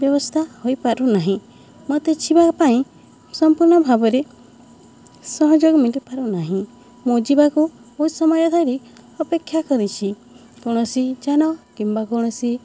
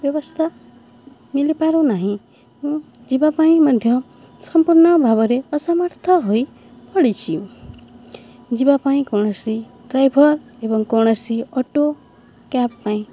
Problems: none marked